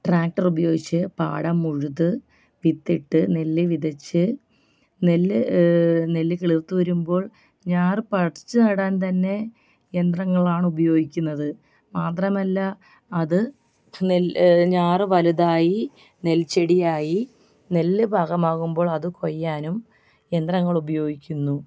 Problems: background sounds at intervals, background conversations at intervals, low volume